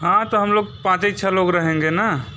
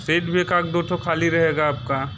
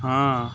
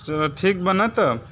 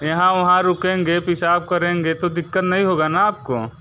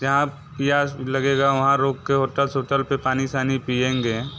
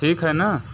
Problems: constant background noise, background conversations at intervals